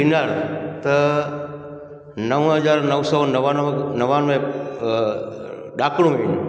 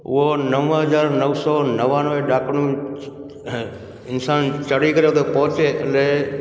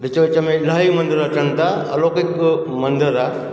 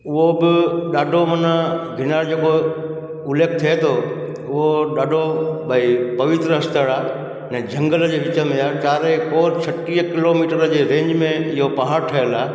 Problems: constant background noise, echo